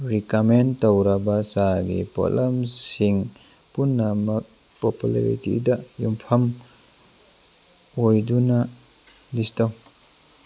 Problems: constant background noise